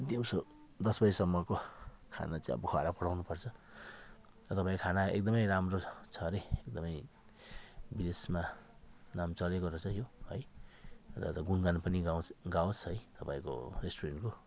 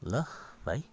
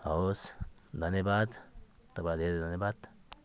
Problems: background conversations at intervals